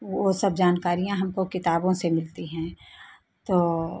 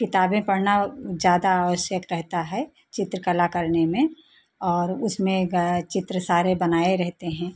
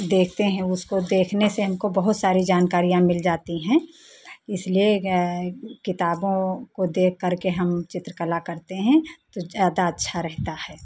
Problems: constant background noise